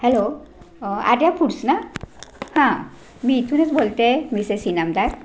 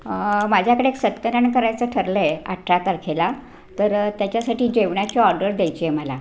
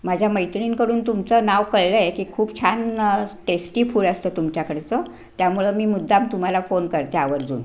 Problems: constant background noise